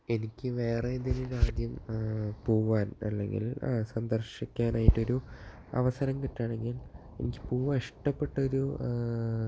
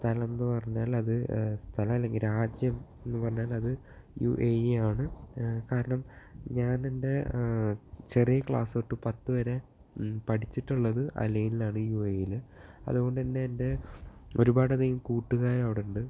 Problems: low volume